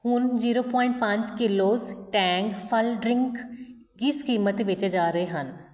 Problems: none marked